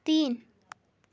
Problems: none marked